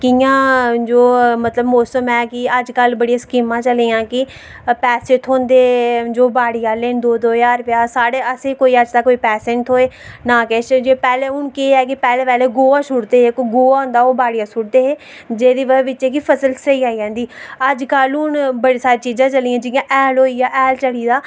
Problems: none marked